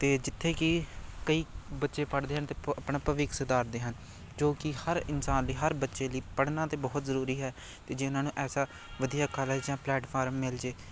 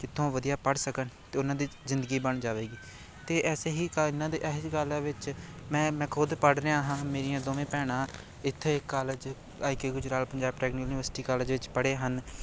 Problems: none marked